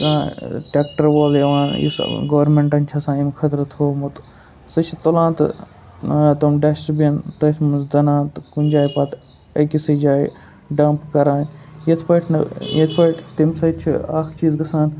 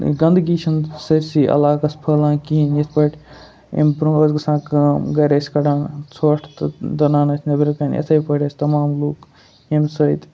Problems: background sounds at intervals